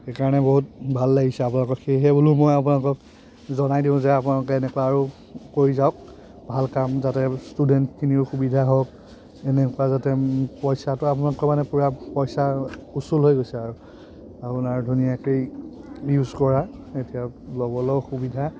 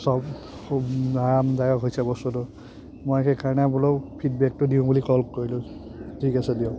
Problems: constant background noise, background conversations at intervals